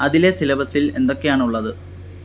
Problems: constant background noise